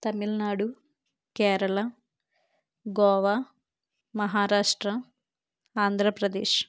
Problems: none marked